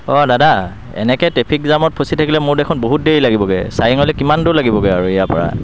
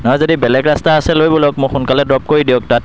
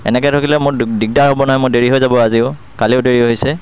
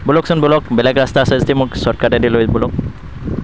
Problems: constant background noise